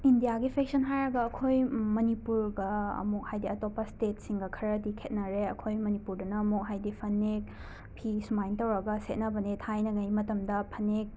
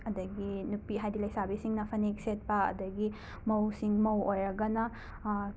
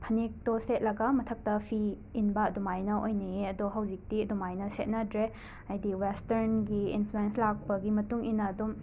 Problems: constant background noise